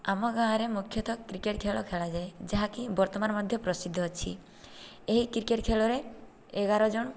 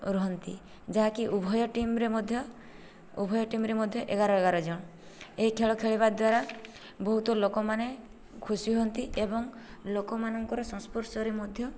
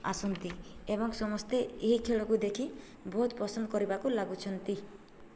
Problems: low volume